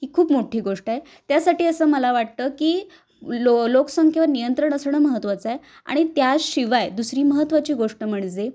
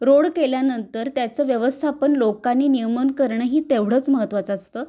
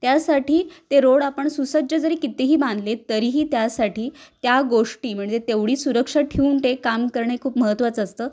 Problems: background sounds at intervals